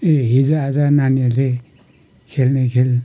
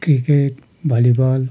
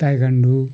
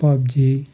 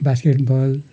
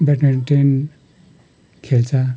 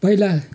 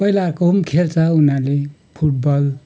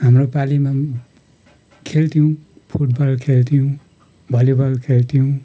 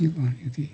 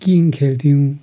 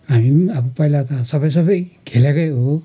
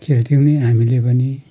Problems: background sounds at intervals